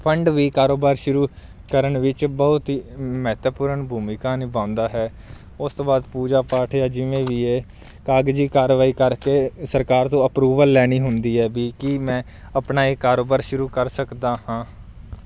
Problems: none marked